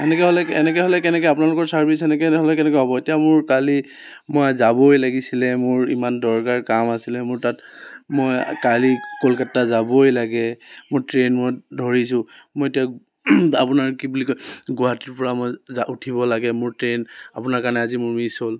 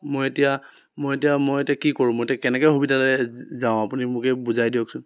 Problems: constant background noise